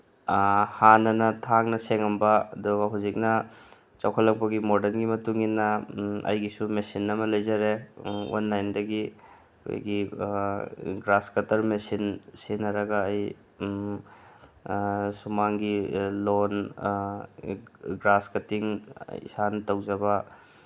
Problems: background sounds at intervals